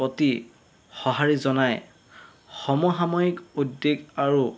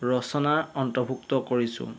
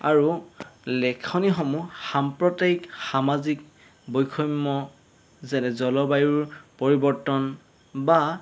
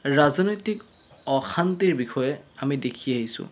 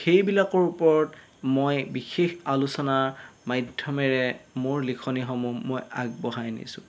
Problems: none marked